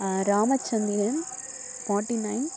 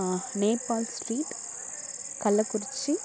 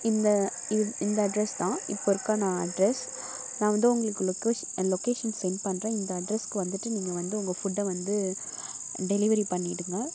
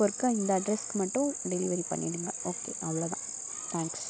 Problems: constant background noise, background conversations at intervals